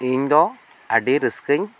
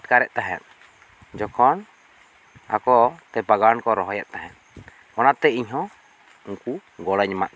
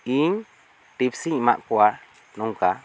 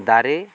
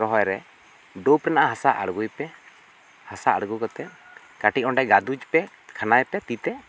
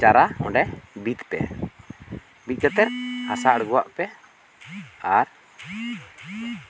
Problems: background sounds at intervals